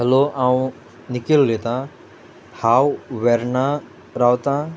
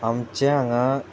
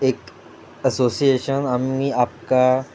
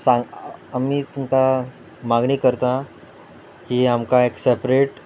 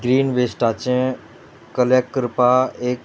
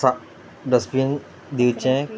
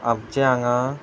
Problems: background sounds at intervals